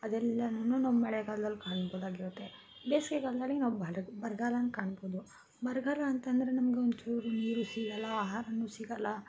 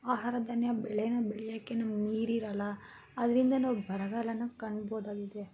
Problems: constant background noise